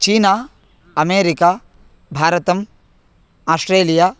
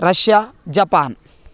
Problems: constant background noise